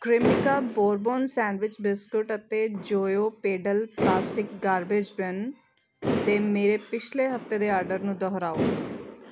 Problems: constant background noise